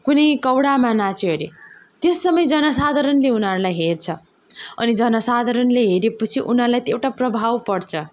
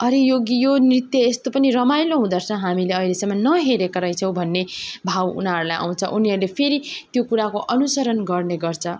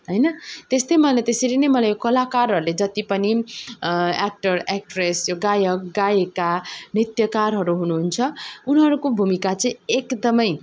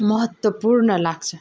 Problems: background sounds at intervals